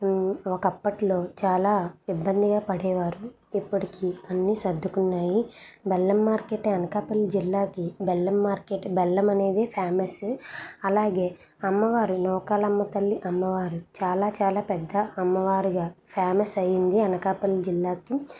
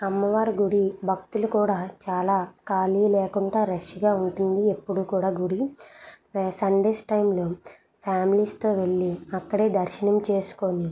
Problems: none marked